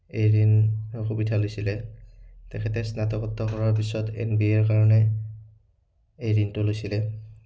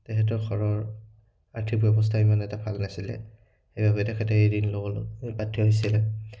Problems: none marked